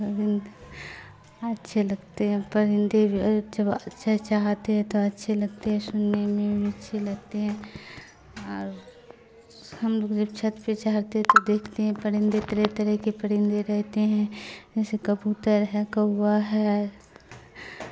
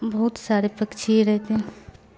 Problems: constant background noise